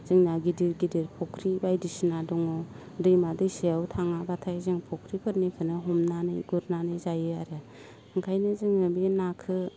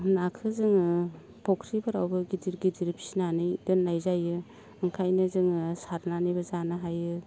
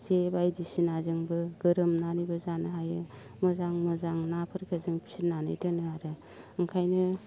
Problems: constant background noise